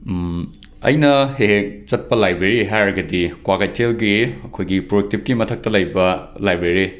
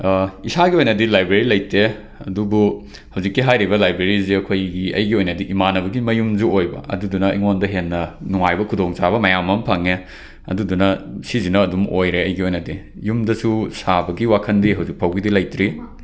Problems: background sounds at intervals